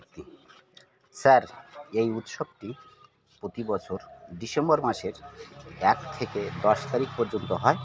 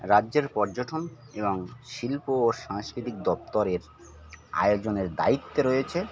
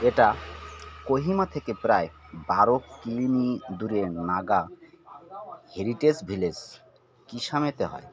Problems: constant background noise, continuous background conversations